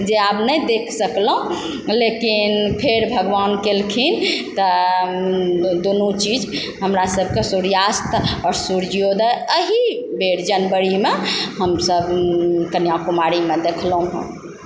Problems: constant background noise